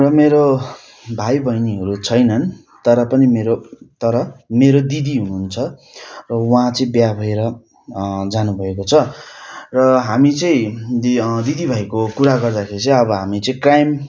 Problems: constant background noise